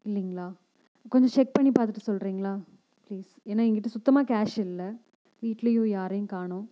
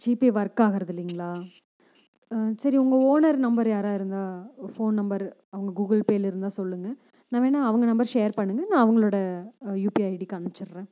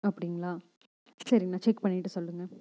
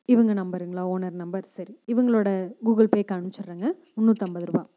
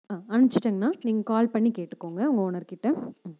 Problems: none marked